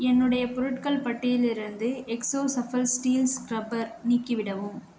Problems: none marked